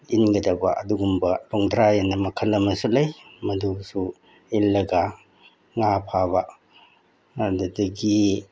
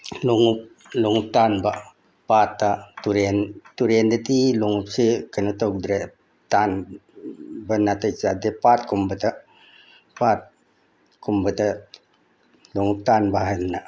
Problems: none marked